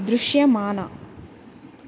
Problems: none marked